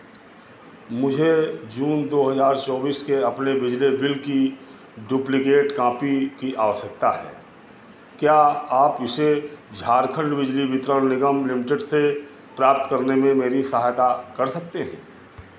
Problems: constant background noise